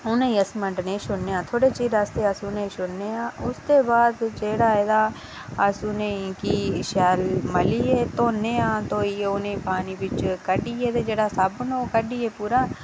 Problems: none marked